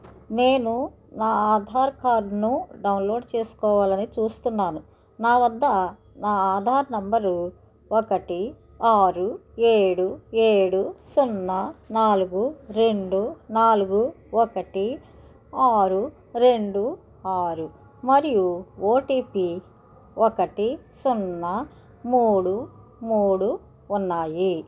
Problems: background conversations at intervals